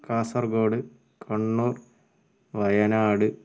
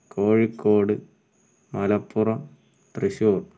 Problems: background sounds at intervals, low volume